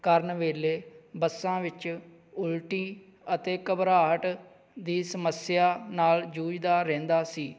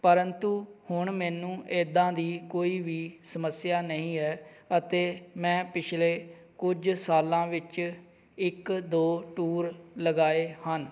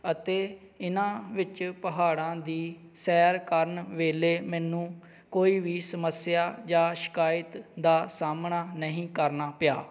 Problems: background sounds at intervals